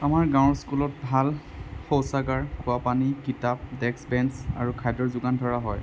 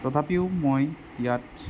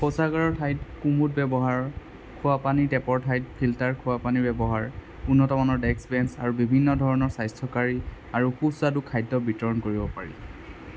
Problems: constant background noise